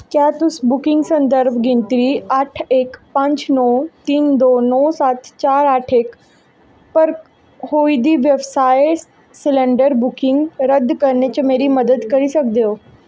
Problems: echo